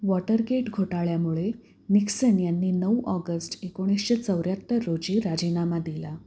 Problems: background sounds at intervals